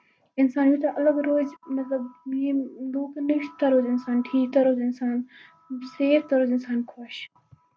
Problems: constant background noise